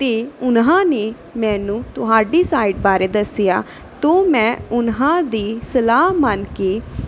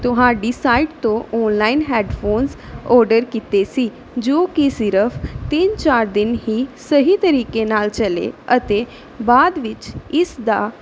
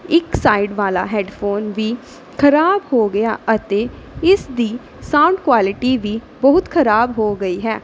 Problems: none marked